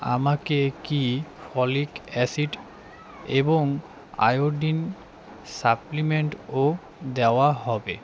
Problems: background sounds at intervals, background conversations at intervals